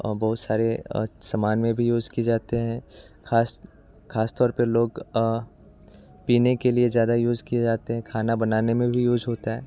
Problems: none marked